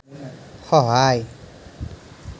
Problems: none marked